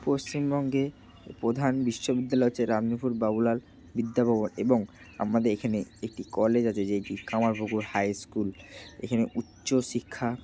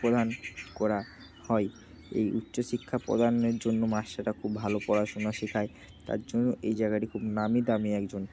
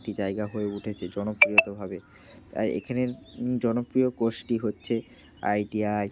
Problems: none marked